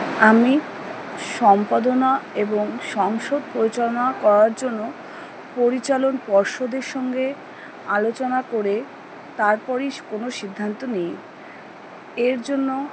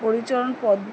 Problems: background conversations at intervals